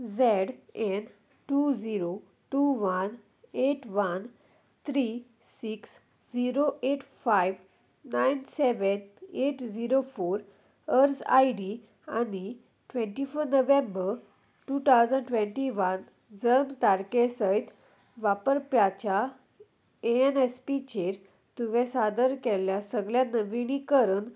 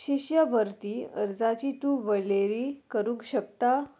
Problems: none marked